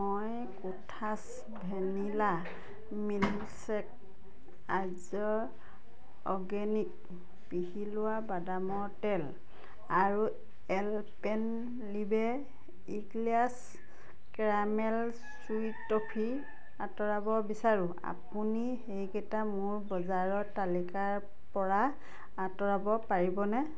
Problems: continuous background conversations